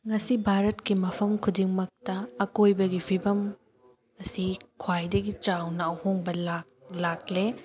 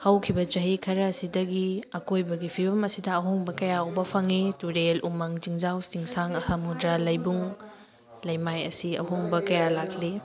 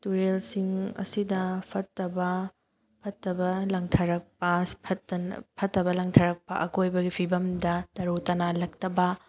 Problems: background sounds at intervals, background conversations at intervals